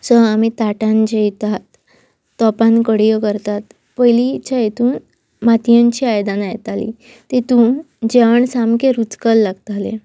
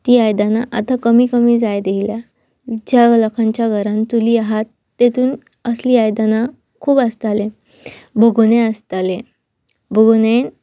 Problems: none marked